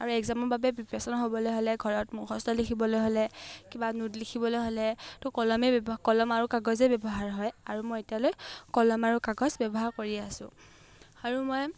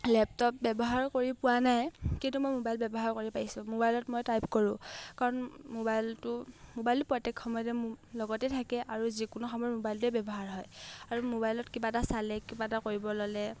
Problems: none marked